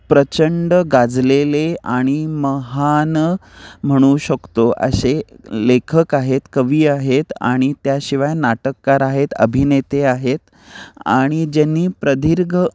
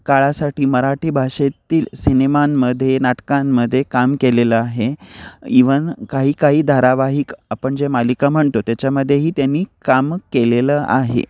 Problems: background sounds at intervals